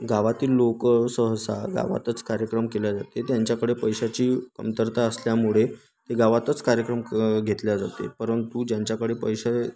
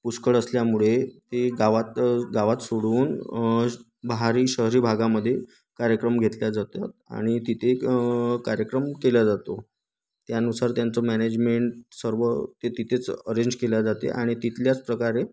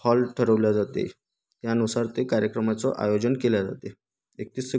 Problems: background sounds at intervals